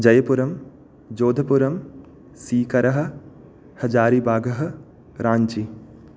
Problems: none marked